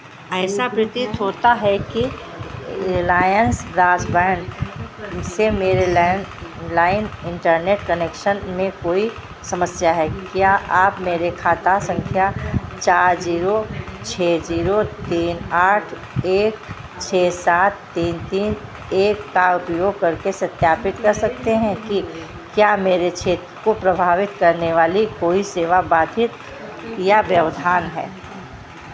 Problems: constant background noise